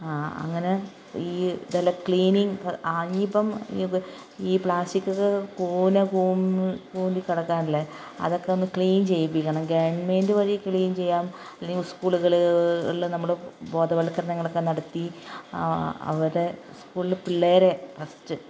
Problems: none marked